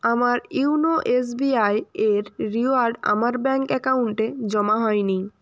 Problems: none marked